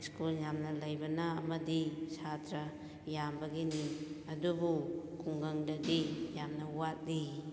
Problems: background sounds at intervals